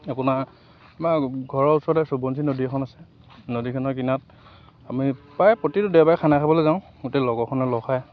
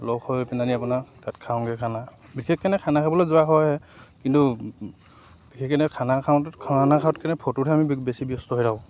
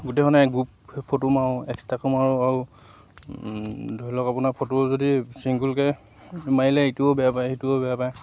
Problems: constant background noise